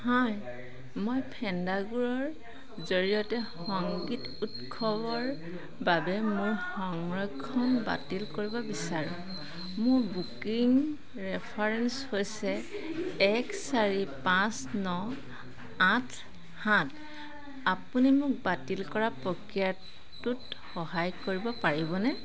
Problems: constant background noise